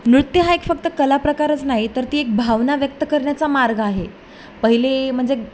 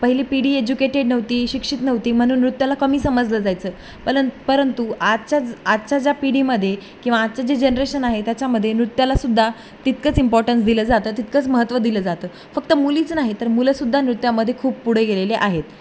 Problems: none marked